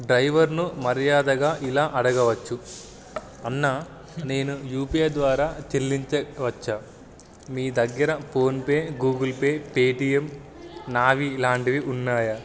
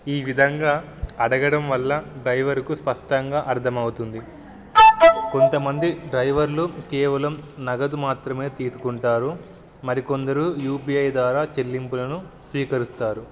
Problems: background sounds at intervals